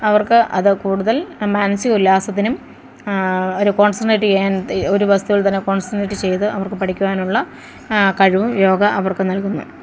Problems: none marked